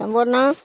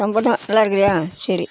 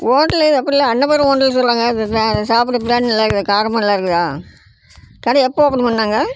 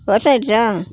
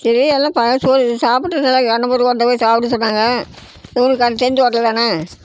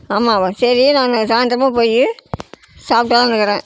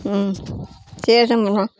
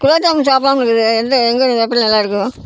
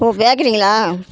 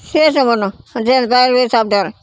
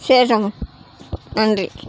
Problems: constant background noise